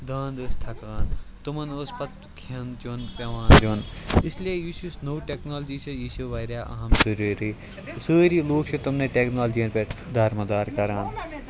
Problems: background sounds at intervals, continuous background conversations